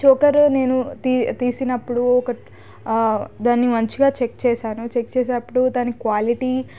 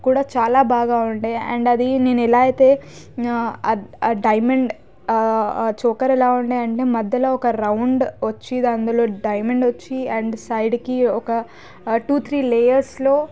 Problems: background sounds at intervals